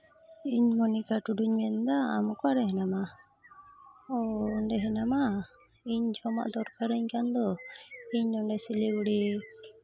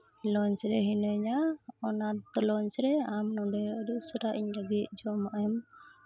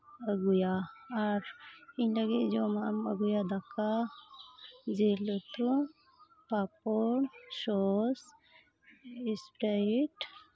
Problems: background sounds at intervals